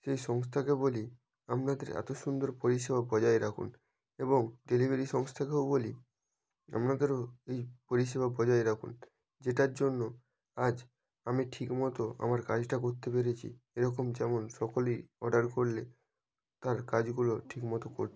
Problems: background sounds at intervals